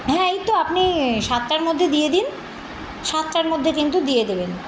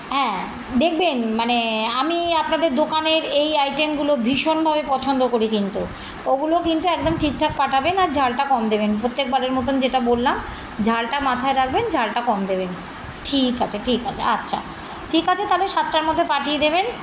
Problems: constant background noise, continuous background conversations